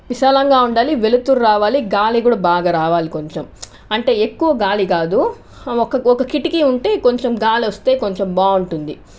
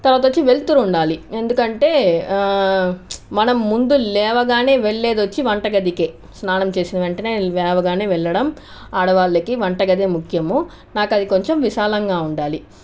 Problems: none marked